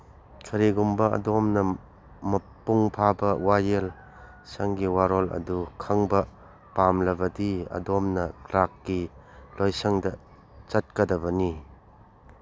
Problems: background sounds at intervals